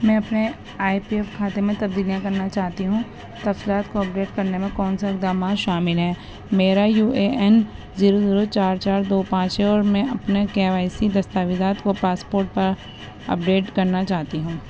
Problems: constant background noise